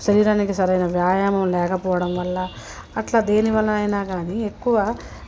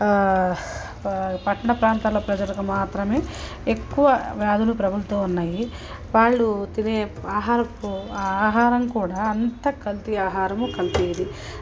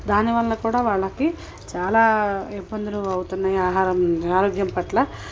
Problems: constant background noise, low volume